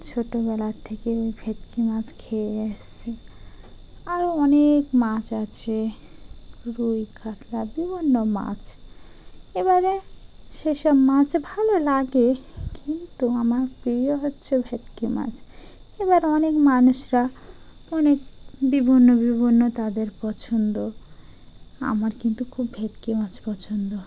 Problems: background sounds at intervals